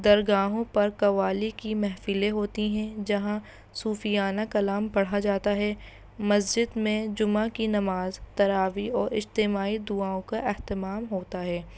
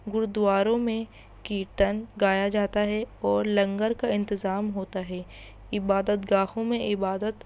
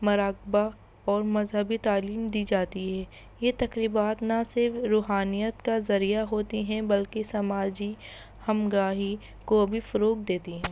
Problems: constant background noise